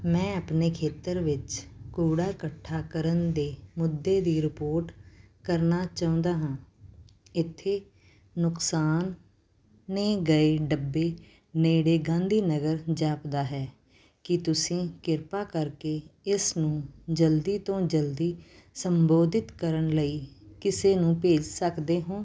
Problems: background sounds at intervals